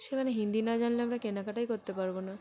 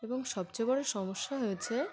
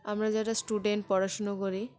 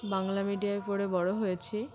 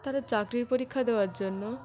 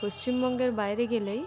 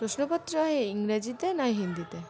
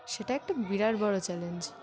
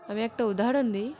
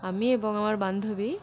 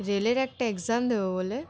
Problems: constant background noise, continuous background conversations